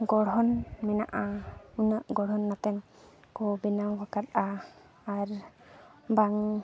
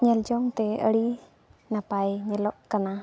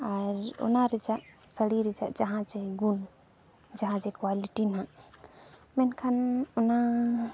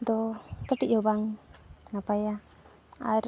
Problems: background sounds at intervals